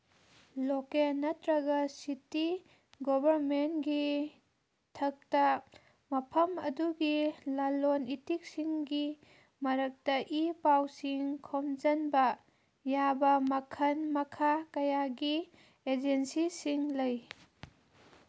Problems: background sounds at intervals